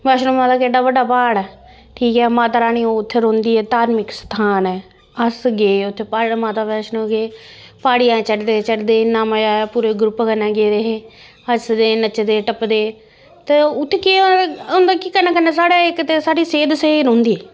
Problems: constant background noise